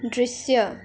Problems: background sounds at intervals